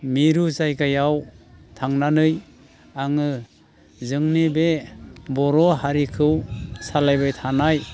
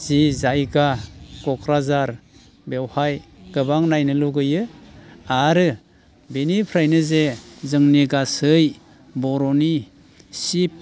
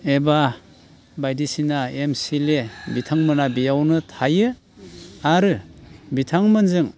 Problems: constant background noise